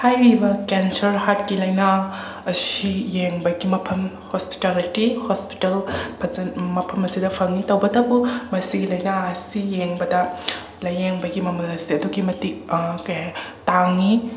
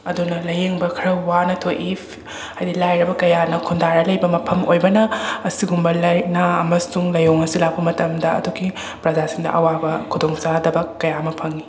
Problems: background conversations at intervals